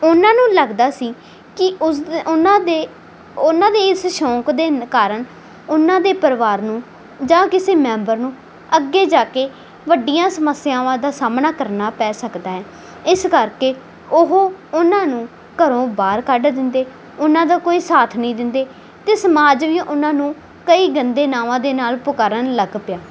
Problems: background sounds at intervals